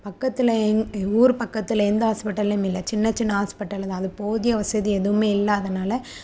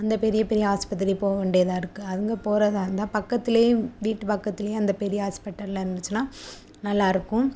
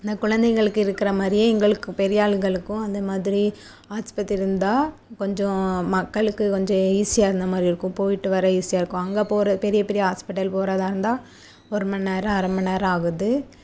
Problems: constant background noise